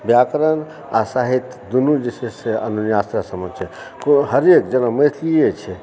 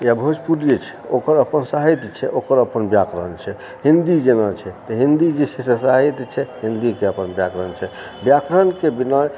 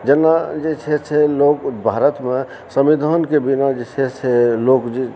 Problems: background sounds at intervals